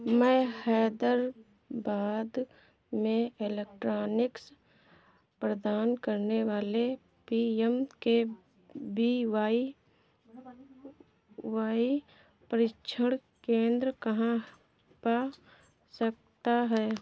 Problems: none marked